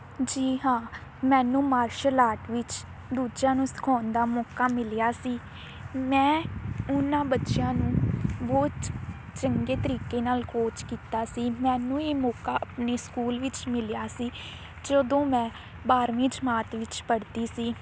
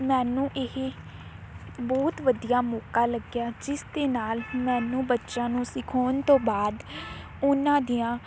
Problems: constant background noise